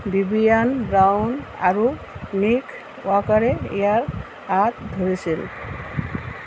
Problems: constant background noise